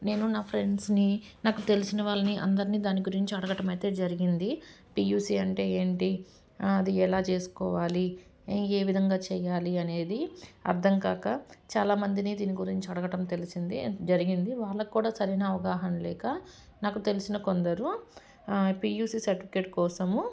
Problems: background sounds at intervals